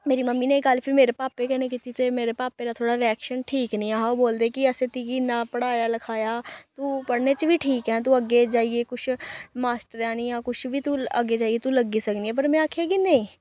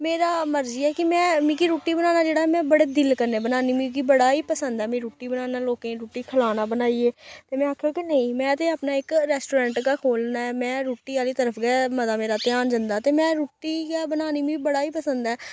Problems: none marked